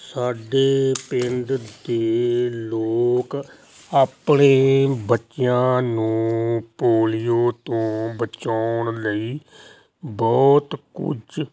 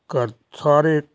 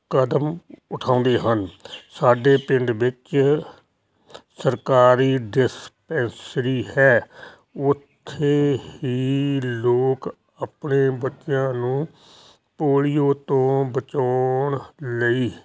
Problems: constant background noise